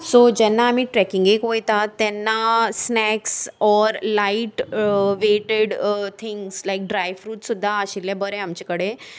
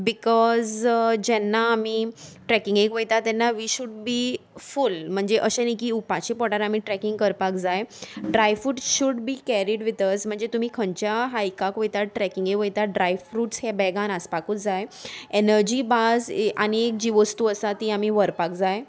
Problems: none marked